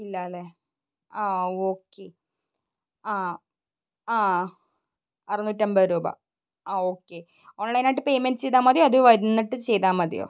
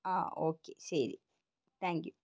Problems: none marked